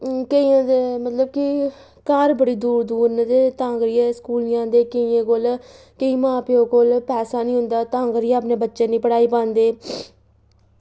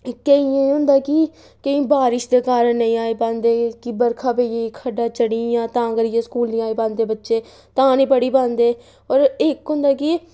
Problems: none marked